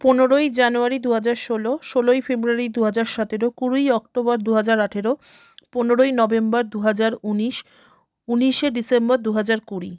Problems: none marked